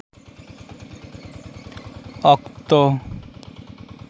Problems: constant background noise